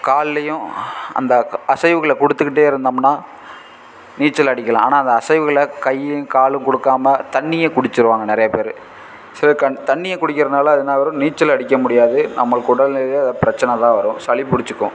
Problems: constant background noise